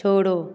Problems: continuous background conversations